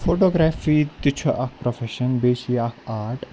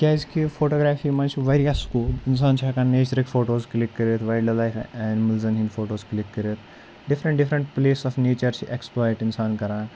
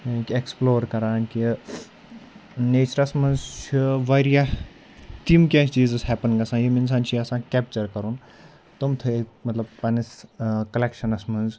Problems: none marked